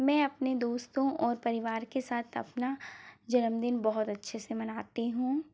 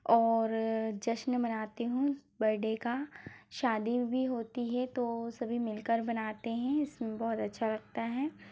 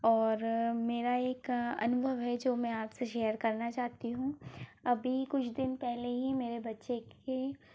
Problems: low volume